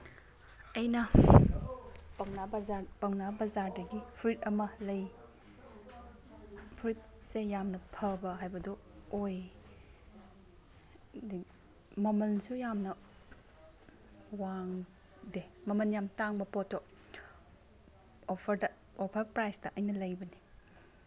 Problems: background sounds at intervals, background conversations at intervals